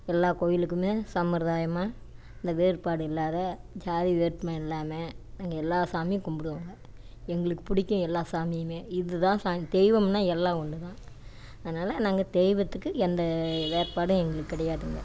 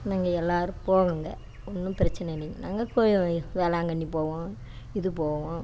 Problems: none marked